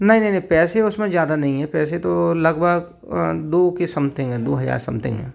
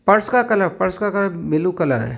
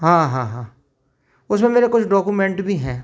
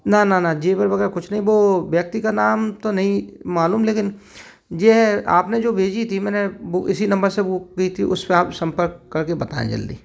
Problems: none marked